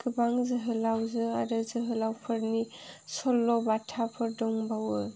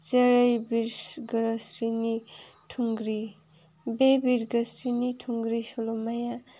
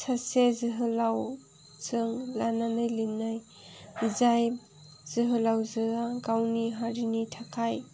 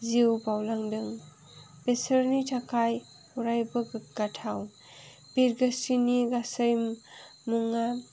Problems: background sounds at intervals